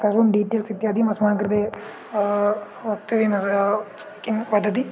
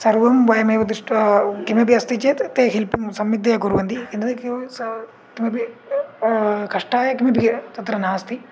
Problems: background sounds at intervals